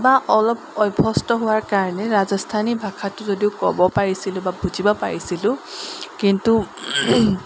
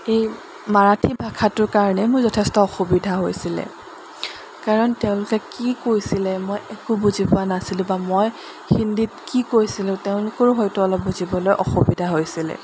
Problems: none marked